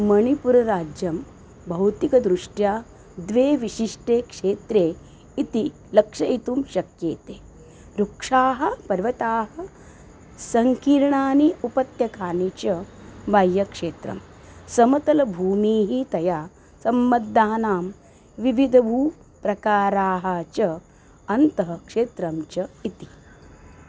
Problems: none marked